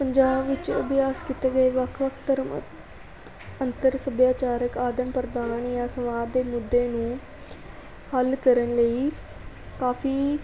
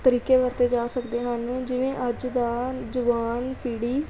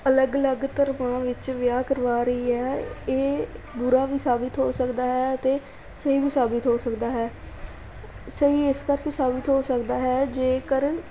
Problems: continuous background conversations